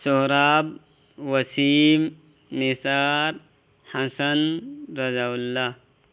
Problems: constant background noise